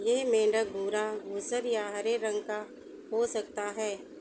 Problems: constant background noise